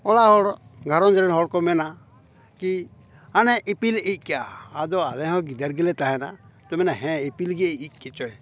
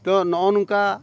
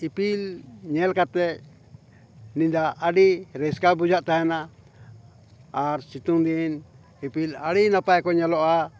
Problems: background conversations at intervals